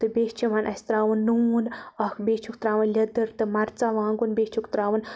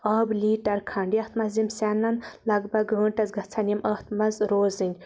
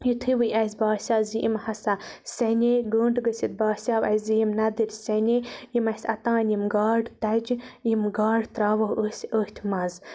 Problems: none marked